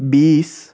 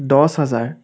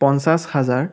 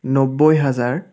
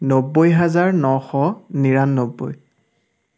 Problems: background sounds at intervals